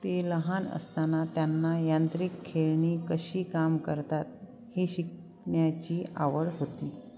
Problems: none marked